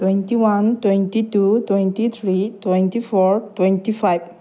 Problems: none marked